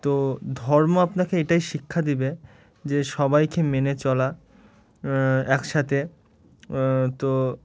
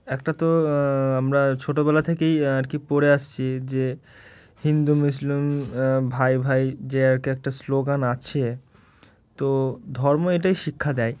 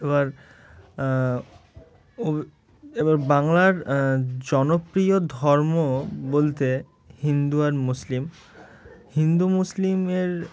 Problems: none marked